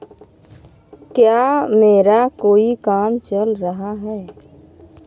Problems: background sounds at intervals